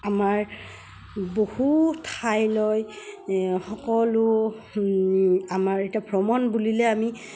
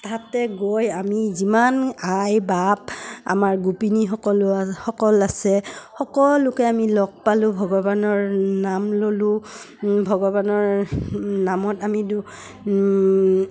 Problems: none marked